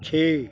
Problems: background sounds at intervals